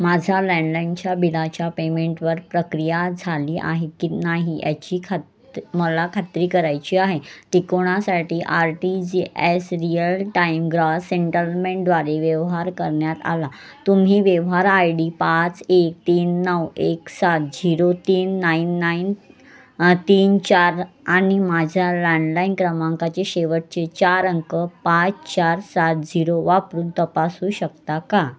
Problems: constant background noise, continuous background conversations